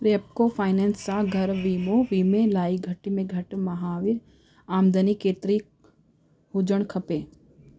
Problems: constant background noise